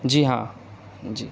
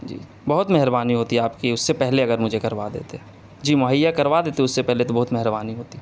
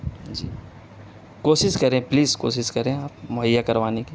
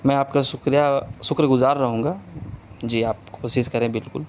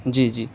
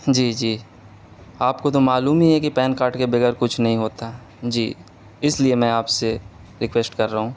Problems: constant background noise, background conversations at intervals